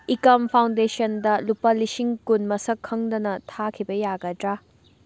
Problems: background sounds at intervals